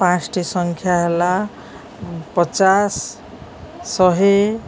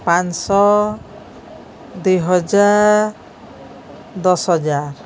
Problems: none marked